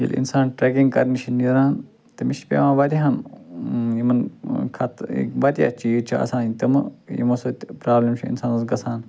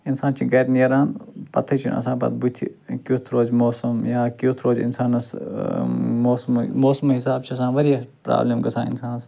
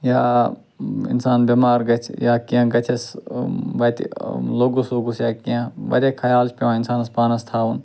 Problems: background sounds at intervals